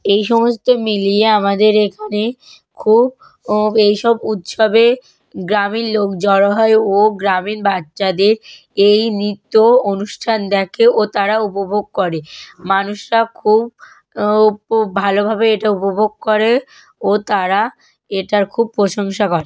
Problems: background sounds at intervals